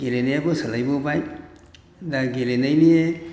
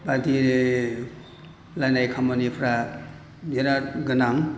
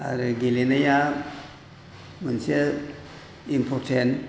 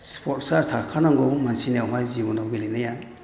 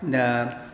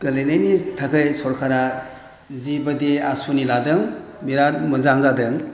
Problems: none marked